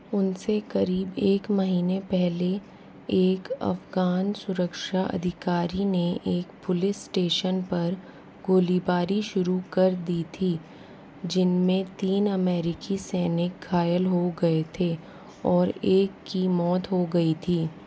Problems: none marked